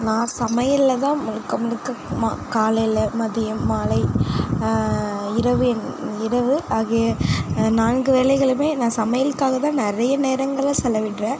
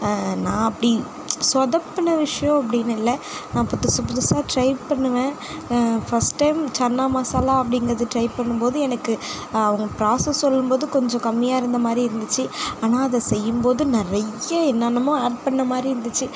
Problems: constant background noise